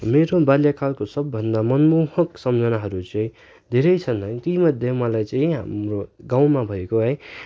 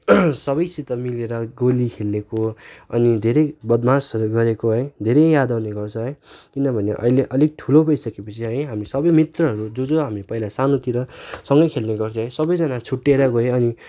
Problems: background sounds at intervals